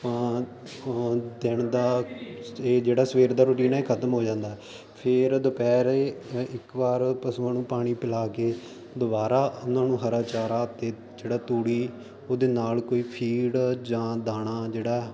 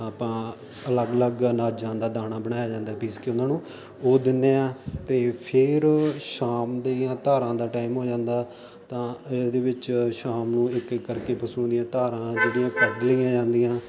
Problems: constant background noise